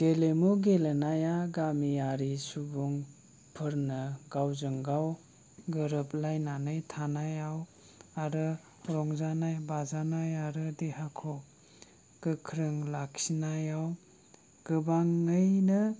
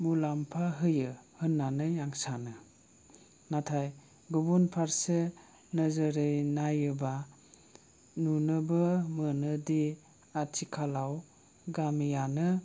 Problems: low volume